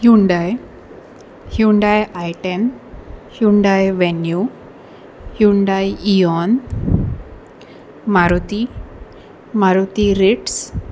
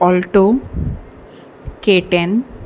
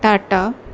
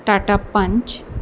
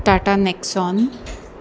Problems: constant background noise